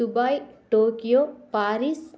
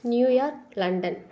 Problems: constant background noise